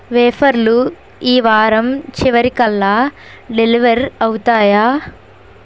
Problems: constant background noise